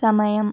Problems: none marked